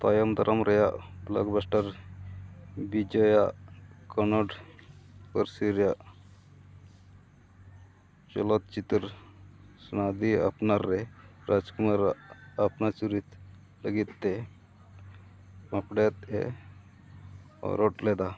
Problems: constant background noise